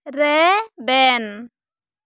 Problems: none marked